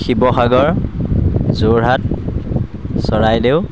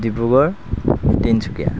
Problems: background sounds at intervals